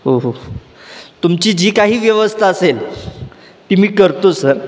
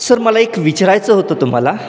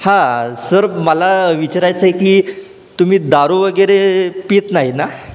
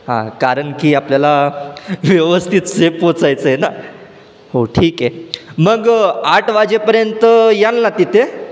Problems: none marked